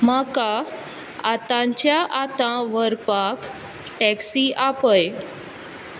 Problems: constant background noise